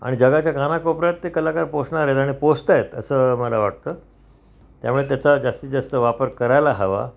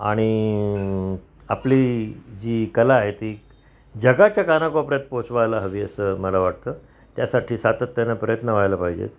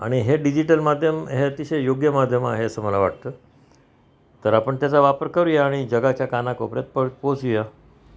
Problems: background sounds at intervals